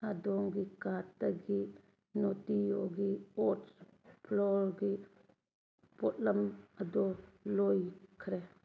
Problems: background sounds at intervals